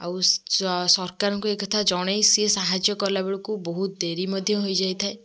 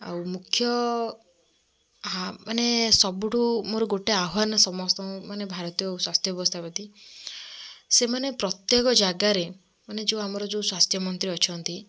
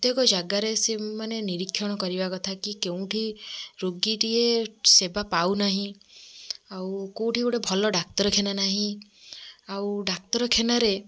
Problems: background sounds at intervals, background conversations at intervals